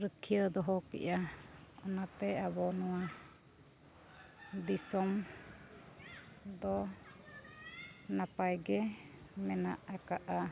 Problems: constant background noise, background conversations at intervals, low volume